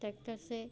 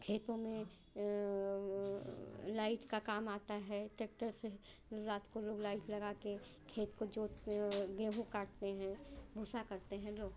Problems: none marked